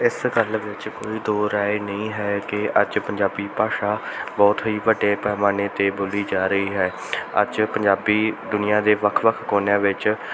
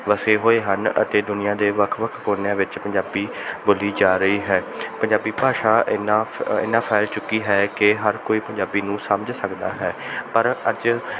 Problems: background sounds at intervals